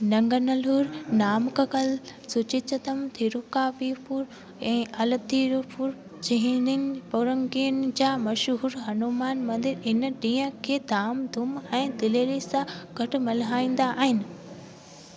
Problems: constant background noise